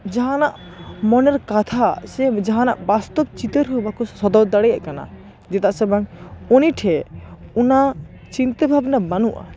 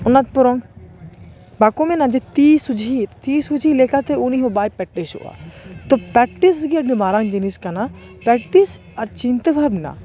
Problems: constant background noise, continuous background conversations